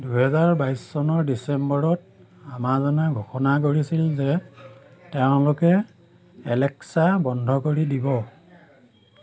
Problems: constant background noise